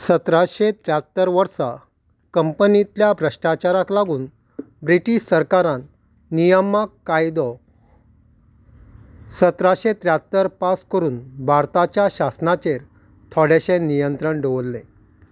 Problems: none marked